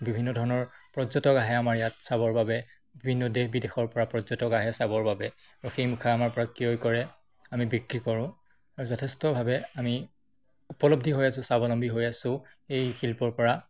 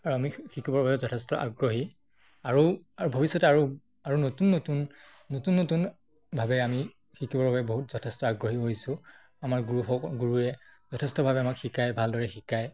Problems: none marked